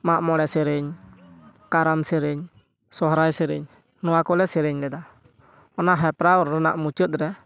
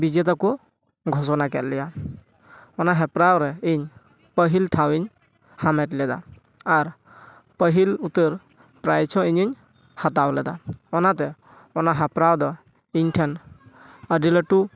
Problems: none marked